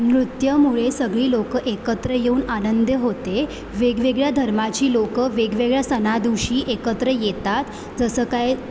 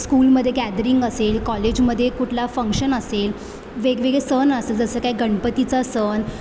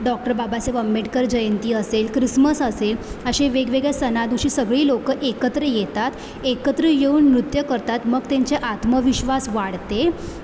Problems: constant background noise, background conversations at intervals